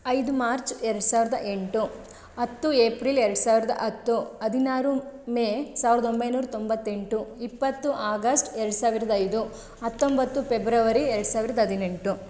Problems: none marked